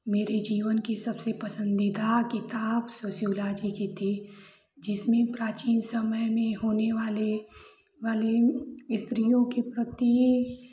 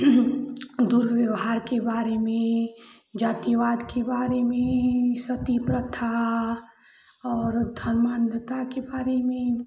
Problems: constant background noise, continuous background conversations